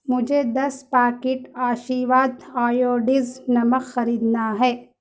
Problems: none marked